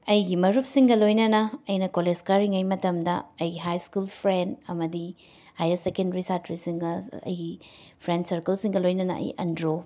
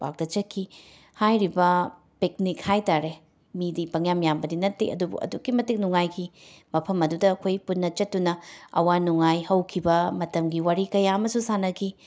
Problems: background sounds at intervals